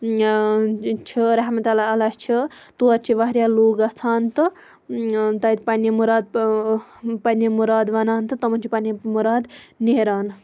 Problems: background sounds at intervals